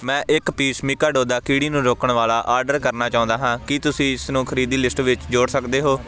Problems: constant background noise